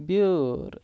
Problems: none marked